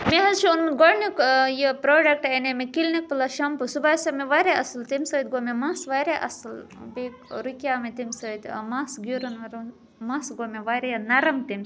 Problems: constant background noise, background conversations at intervals